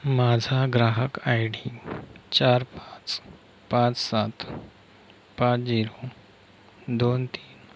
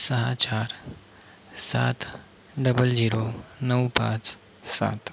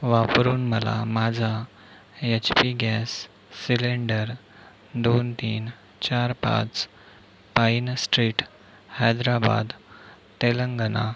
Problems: constant background noise